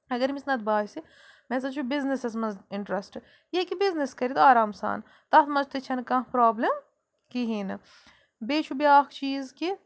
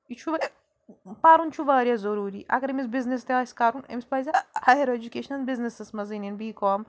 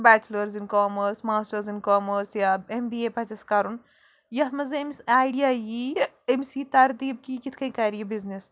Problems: background sounds at intervals